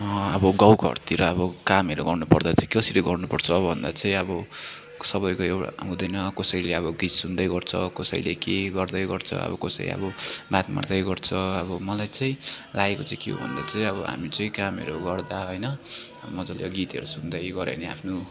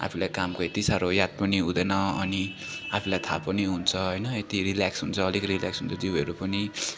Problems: constant background noise, continuous background conversations